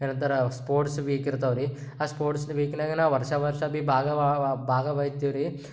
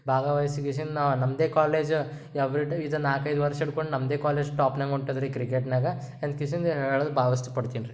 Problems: none marked